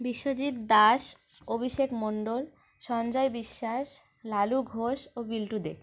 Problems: constant background noise